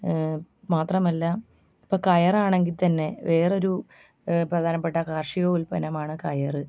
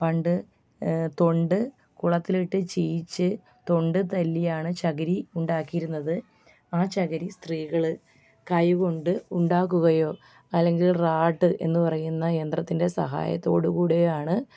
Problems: background sounds at intervals, background conversations at intervals, low volume